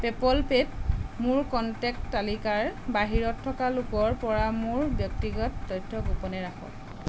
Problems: constant background noise